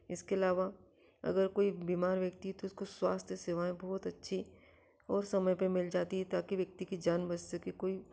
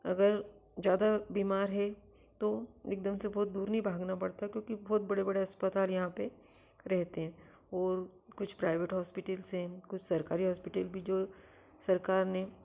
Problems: none marked